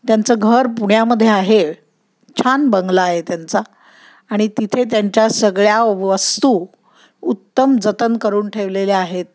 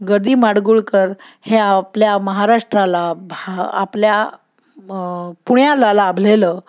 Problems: none marked